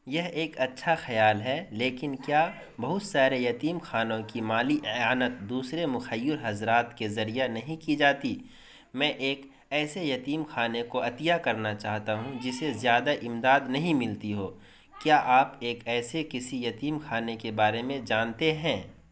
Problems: constant background noise